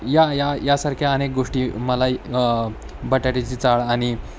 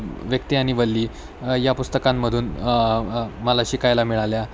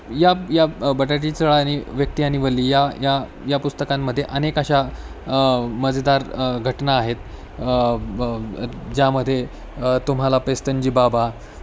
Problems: constant background noise